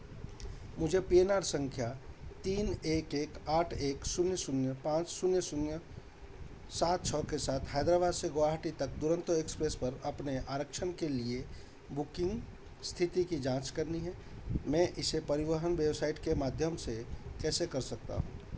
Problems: constant background noise